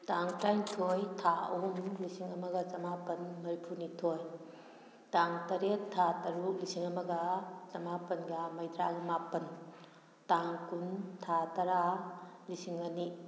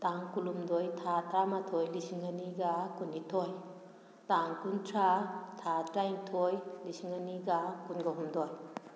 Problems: background sounds at intervals